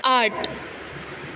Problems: constant background noise